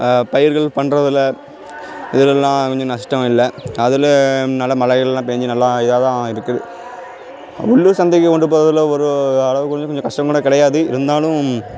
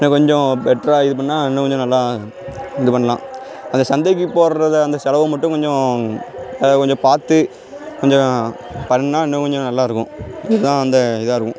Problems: none marked